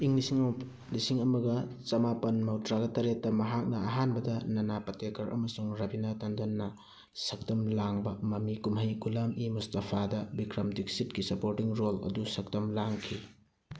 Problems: none marked